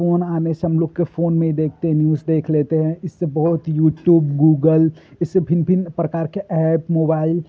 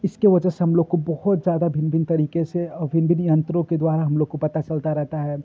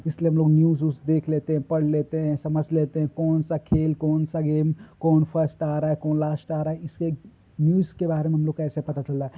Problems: constant background noise